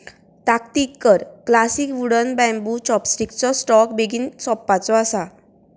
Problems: continuous background conversations